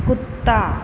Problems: constant background noise